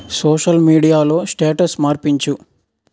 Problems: background sounds at intervals